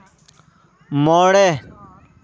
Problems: background sounds at intervals